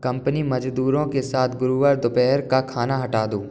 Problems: constant background noise